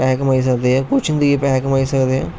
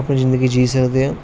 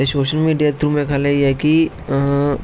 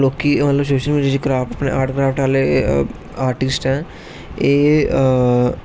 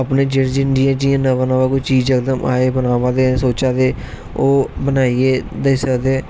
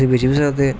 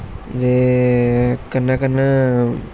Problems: constant background noise